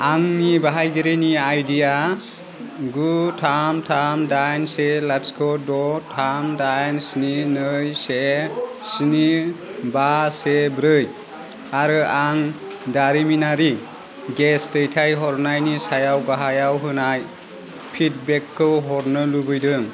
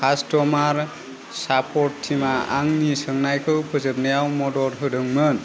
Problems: none marked